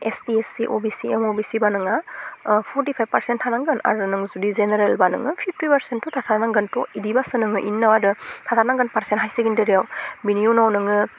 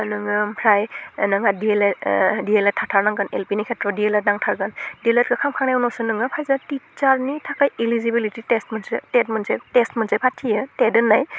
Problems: constant background noise